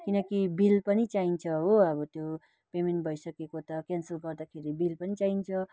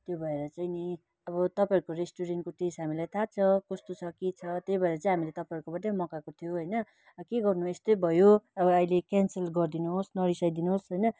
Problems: constant background noise